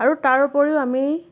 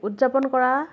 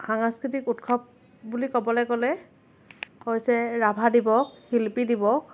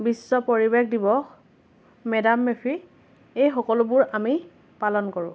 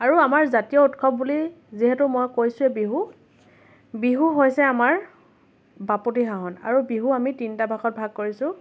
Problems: none marked